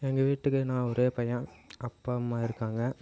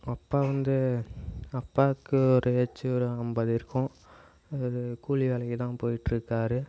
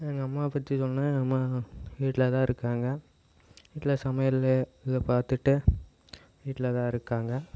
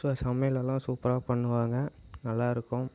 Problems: none marked